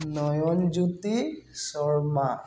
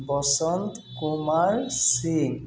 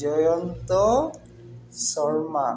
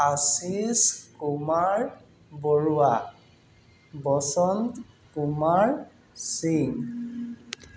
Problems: constant background noise